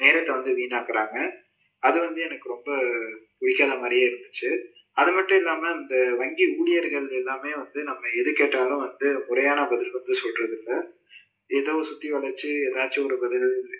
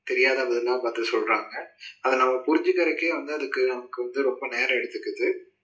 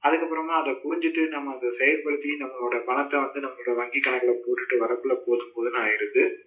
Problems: none marked